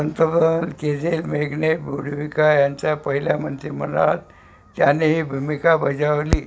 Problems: none marked